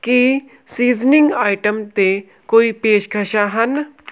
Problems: none marked